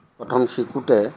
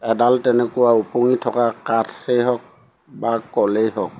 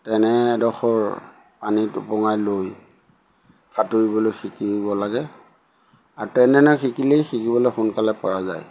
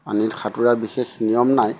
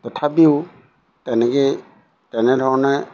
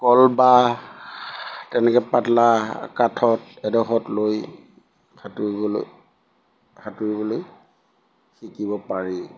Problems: background sounds at intervals